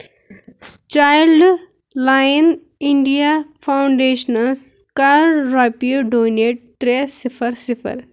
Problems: background sounds at intervals